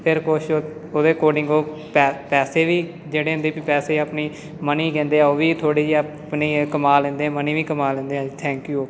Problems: constant background noise, background conversations at intervals